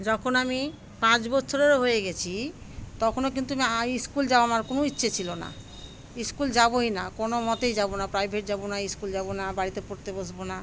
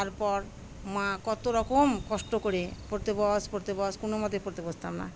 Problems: constant background noise, background conversations at intervals